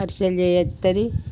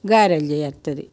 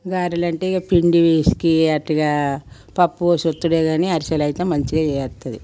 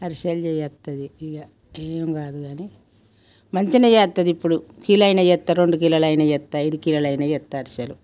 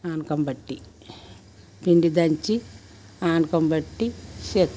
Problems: background sounds at intervals